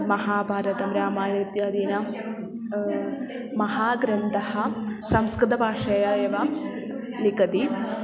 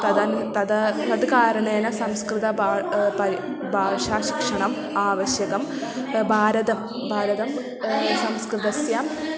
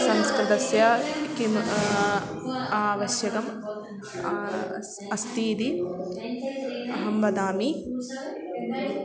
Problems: constant background noise, continuous background conversations